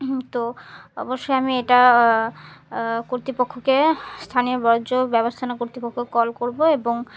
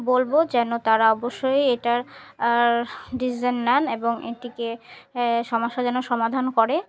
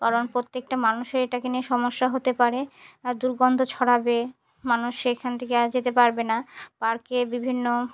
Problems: none marked